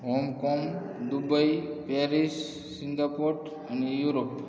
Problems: constant background noise, low volume